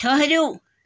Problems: none marked